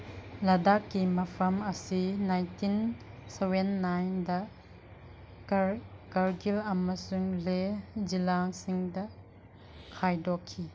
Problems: none marked